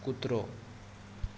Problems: constant background noise